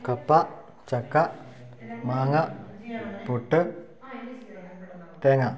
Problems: low volume